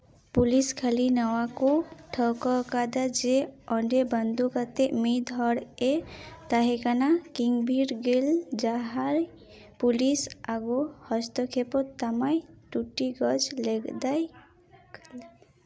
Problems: none marked